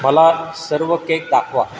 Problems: none marked